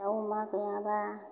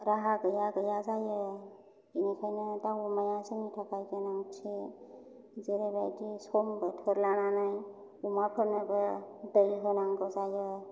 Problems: low volume